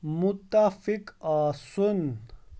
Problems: background sounds at intervals